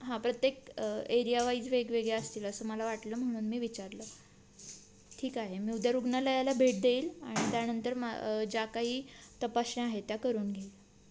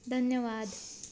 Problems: none marked